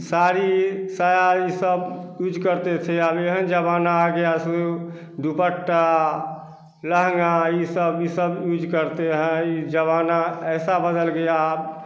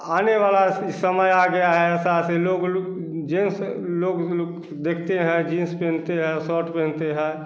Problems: constant background noise, echo